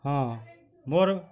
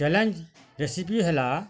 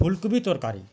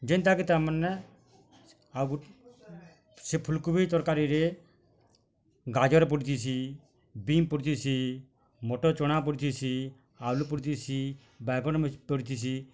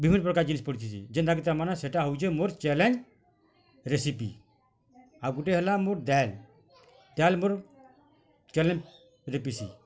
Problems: constant background noise, continuous background conversations